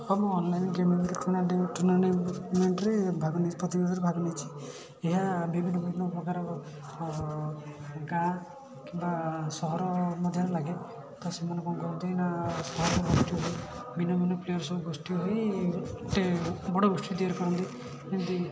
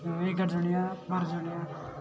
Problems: none marked